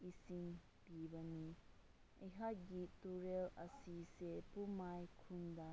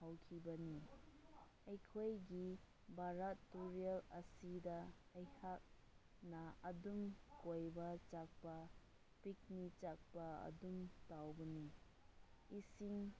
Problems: low volume